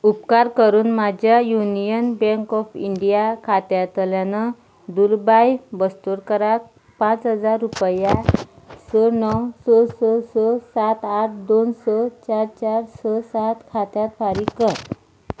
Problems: background sounds at intervals